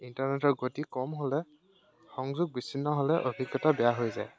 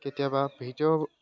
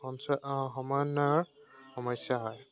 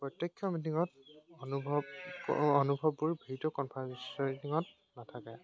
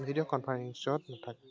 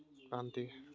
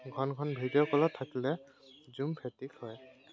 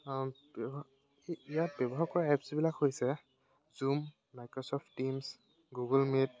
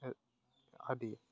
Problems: constant background noise